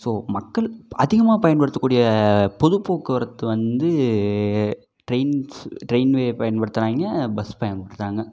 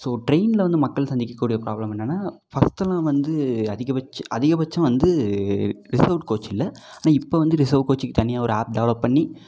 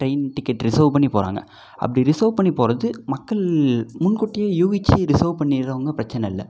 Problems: none marked